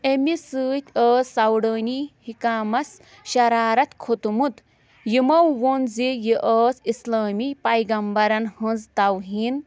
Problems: constant background noise